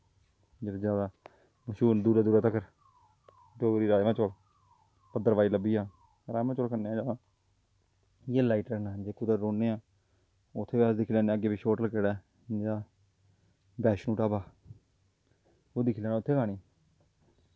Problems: low volume